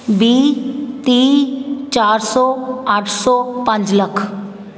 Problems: constant background noise, background conversations at intervals